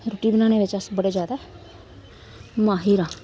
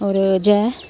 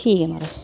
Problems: constant background noise